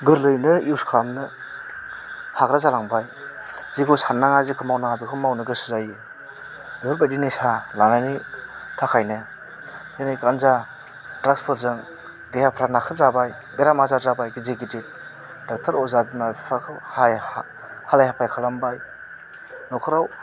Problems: constant background noise